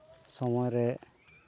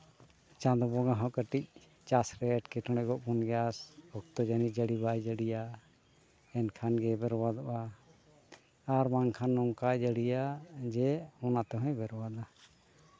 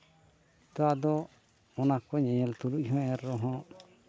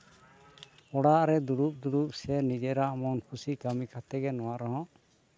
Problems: background sounds at intervals